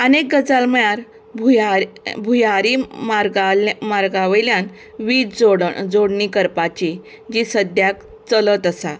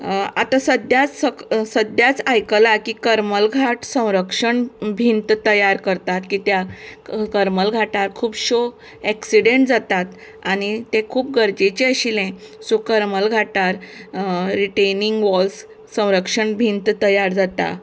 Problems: background conversations at intervals